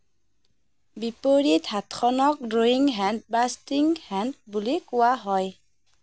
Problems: none marked